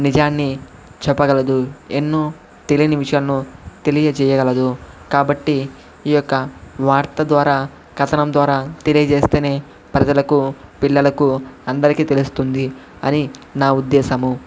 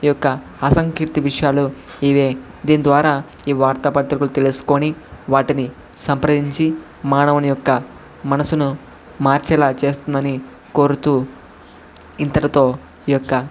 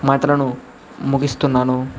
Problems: constant background noise